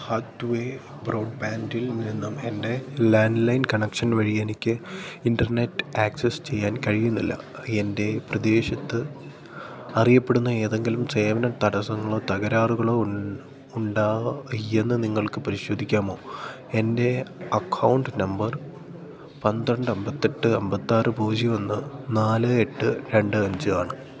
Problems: low volume